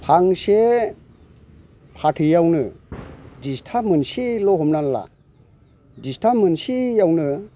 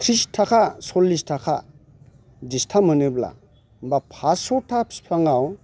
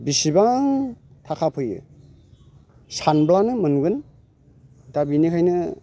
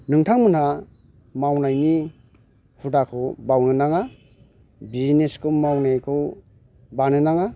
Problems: constant background noise